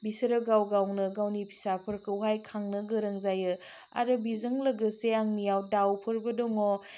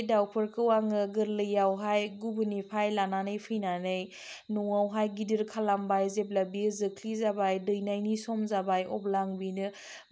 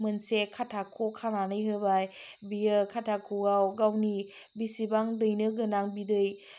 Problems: low volume